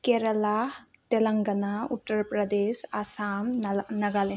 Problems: low volume